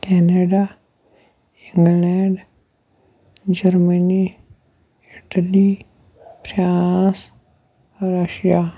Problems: background sounds at intervals, low volume